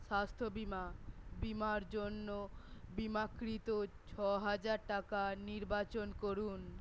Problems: none marked